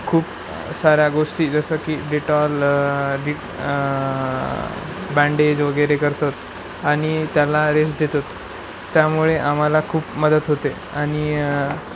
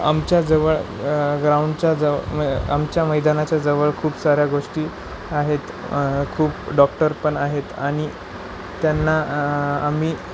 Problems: none marked